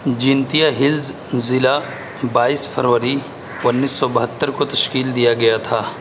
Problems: constant background noise